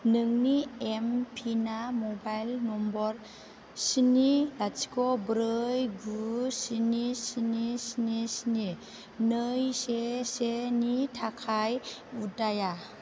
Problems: none marked